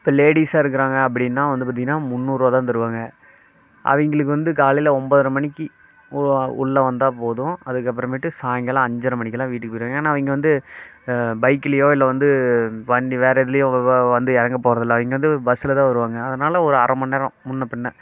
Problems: constant background noise